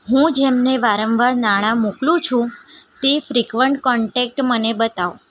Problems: background sounds at intervals